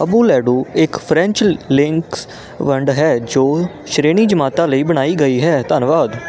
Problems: none marked